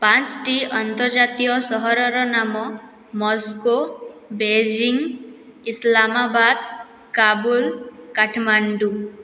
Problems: none marked